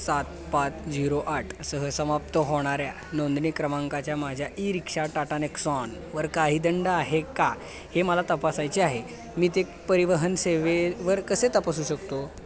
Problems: none marked